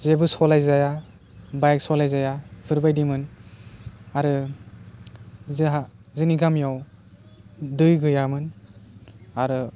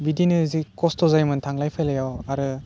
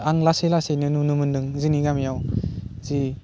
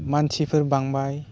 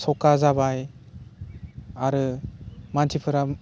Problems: low volume